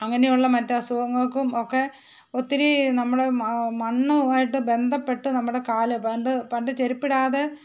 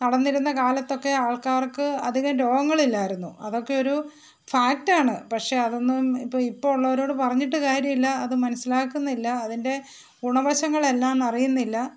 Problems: none marked